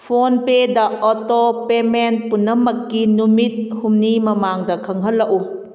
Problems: none marked